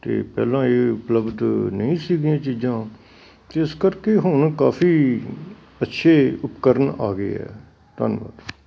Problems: none marked